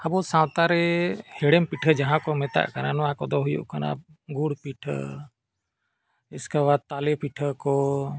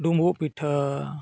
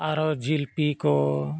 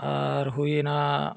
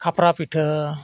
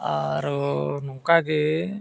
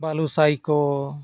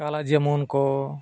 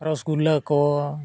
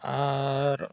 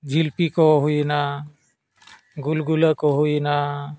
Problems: none marked